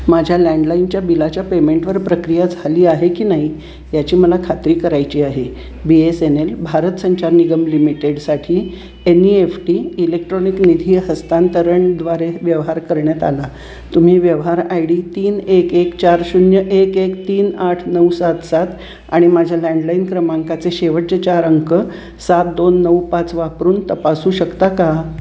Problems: constant background noise